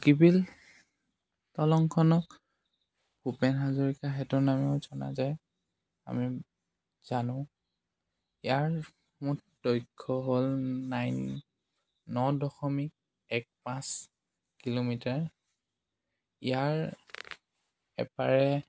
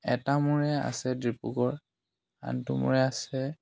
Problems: none marked